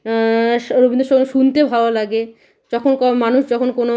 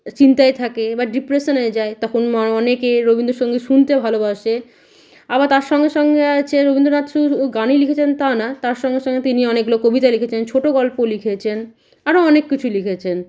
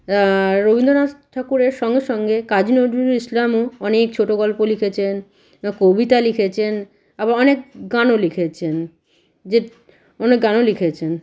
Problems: background sounds at intervals